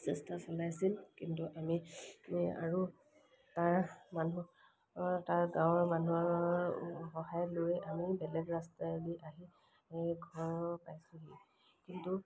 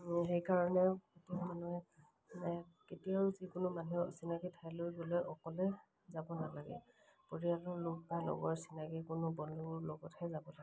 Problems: background sounds at intervals